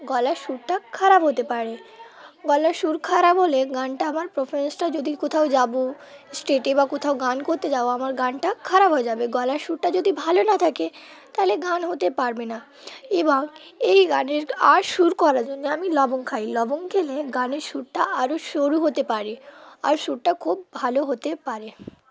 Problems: constant background noise, continuous background conversations